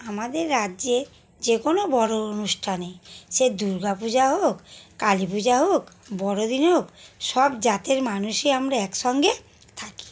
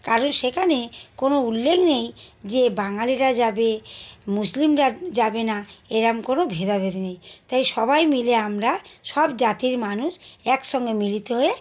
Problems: constant background noise